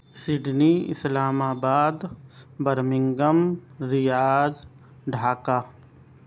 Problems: none marked